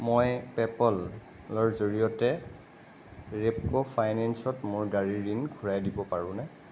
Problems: constant background noise